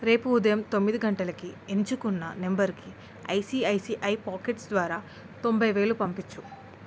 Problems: constant background noise